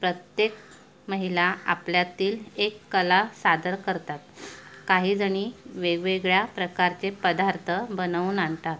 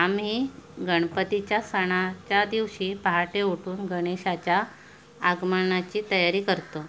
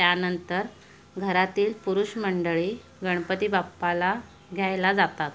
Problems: background sounds at intervals